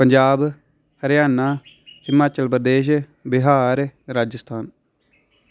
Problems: none marked